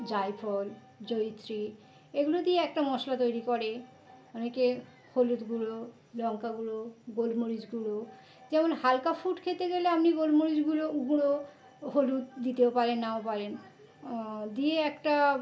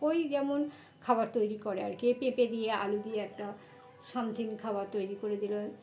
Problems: constant background noise, background conversations at intervals